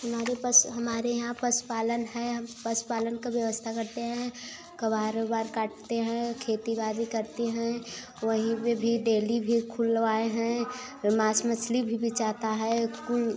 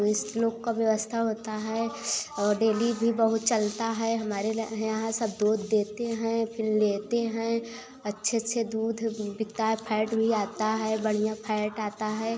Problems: constant background noise